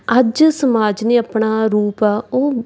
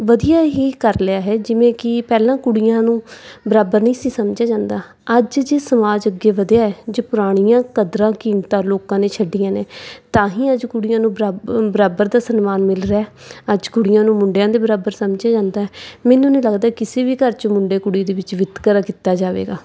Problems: background sounds at intervals